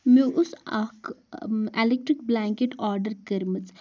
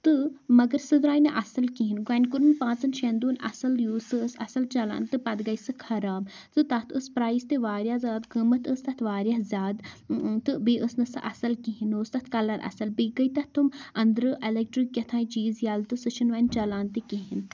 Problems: none marked